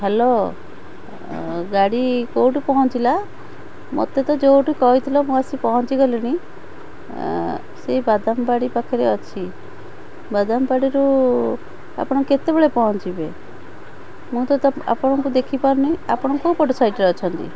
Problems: constant background noise, background conversations at intervals